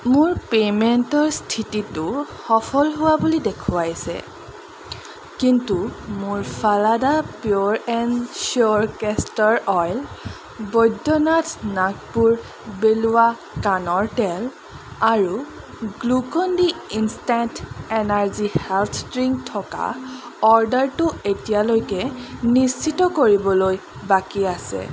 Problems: constant background noise